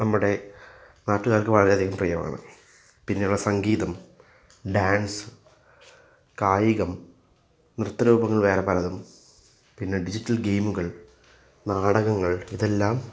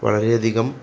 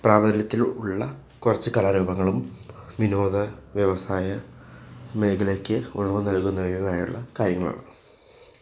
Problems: background sounds at intervals